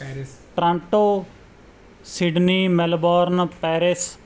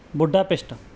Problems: background sounds at intervals